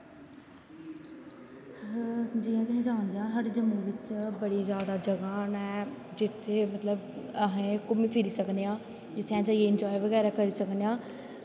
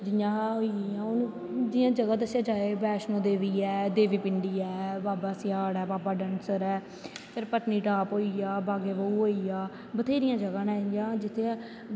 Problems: constant background noise, echo